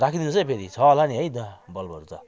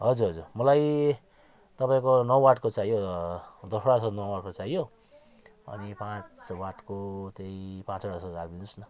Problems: continuous background conversations